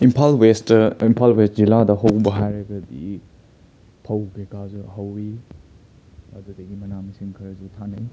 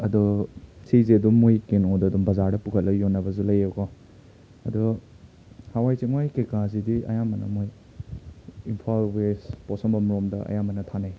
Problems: background sounds at intervals